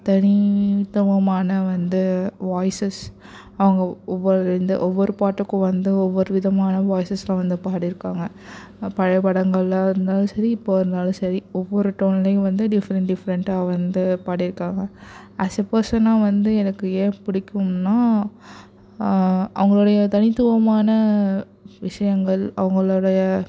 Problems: none marked